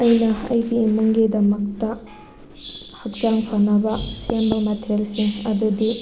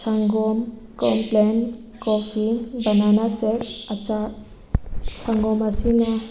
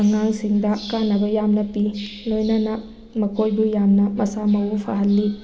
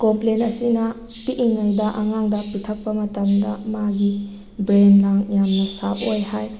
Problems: constant background noise